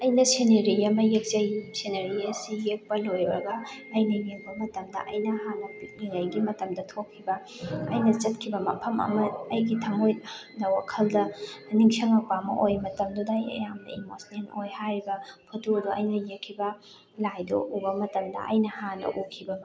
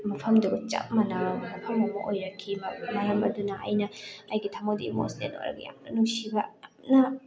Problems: constant background noise, background conversations at intervals